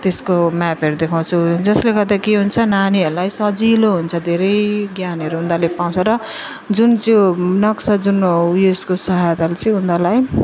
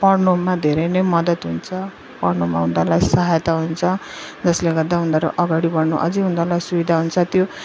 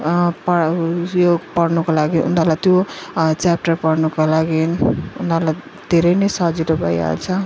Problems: none marked